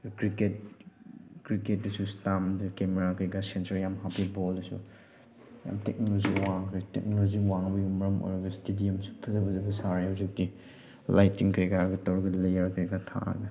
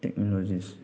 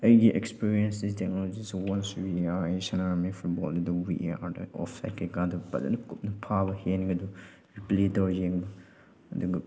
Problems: none marked